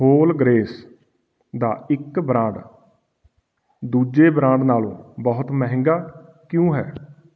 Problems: none marked